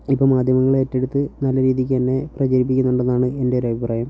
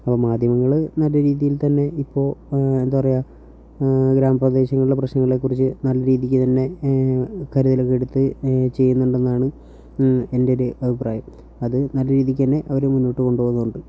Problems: low volume